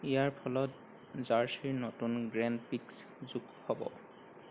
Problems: none marked